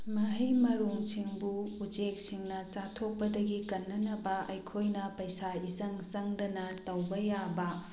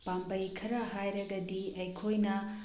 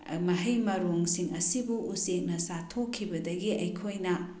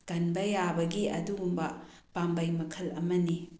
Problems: none marked